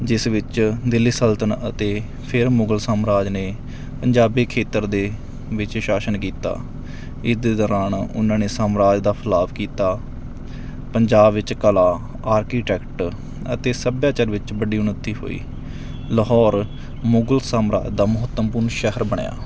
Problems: background sounds at intervals